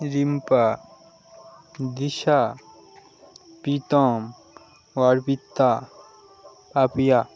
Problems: constant background noise